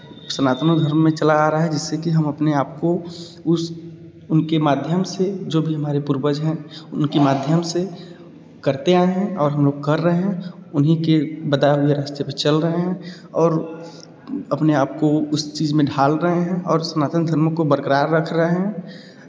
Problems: echo